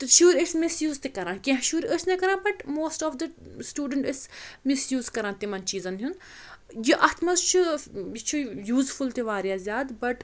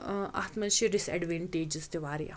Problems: constant background noise